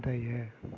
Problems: low volume